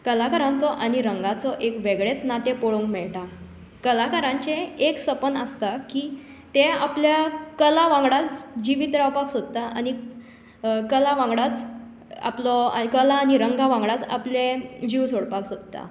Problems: echo